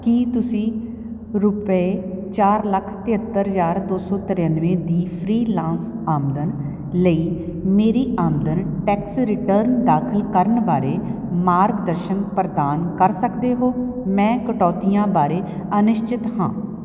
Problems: none marked